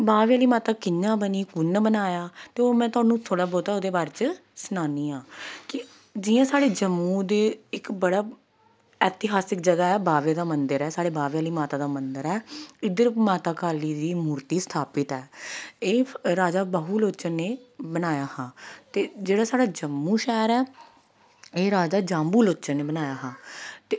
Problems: none marked